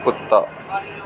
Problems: constant background noise